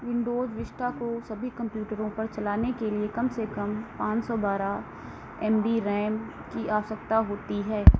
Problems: constant background noise